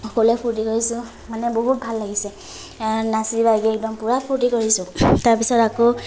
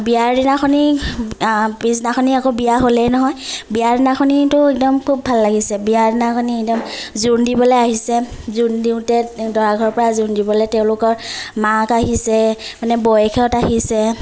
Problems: none marked